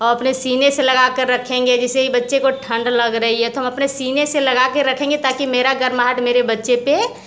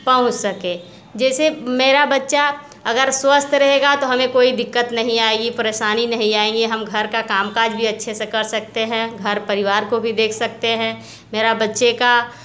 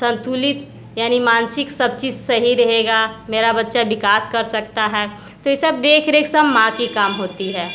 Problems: constant background noise, background conversations at intervals